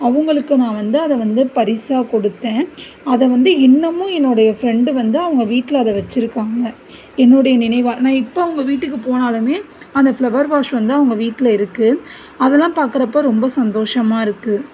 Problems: none marked